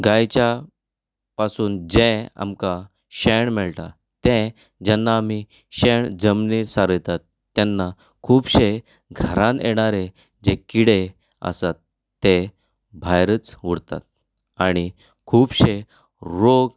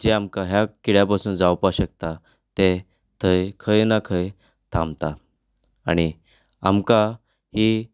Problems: none marked